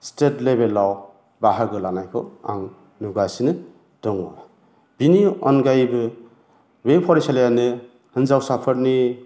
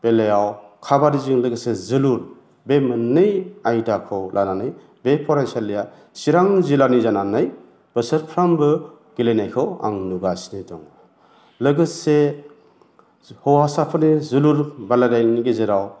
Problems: constant background noise